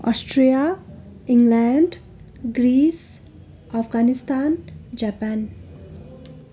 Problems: continuous background conversations